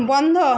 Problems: none marked